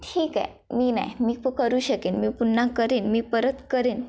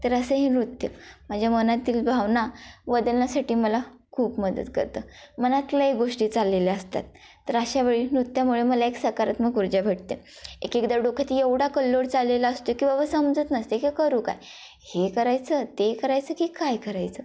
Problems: constant background noise, background conversations at intervals